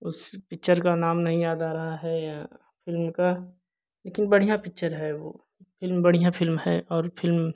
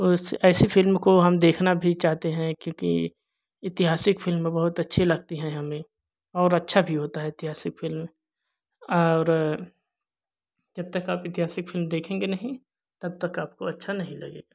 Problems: none marked